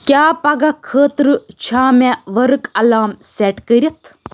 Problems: none marked